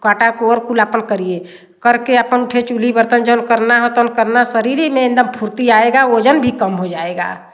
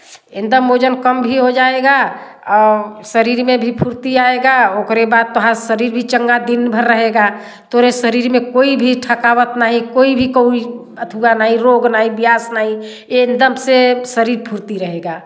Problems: constant background noise